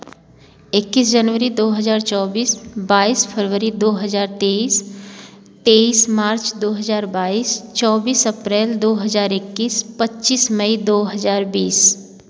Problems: constant background noise